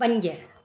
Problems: constant background noise